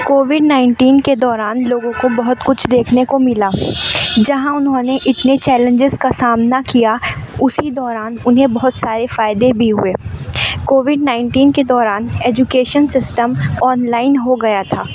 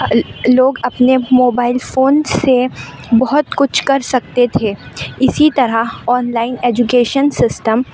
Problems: constant background noise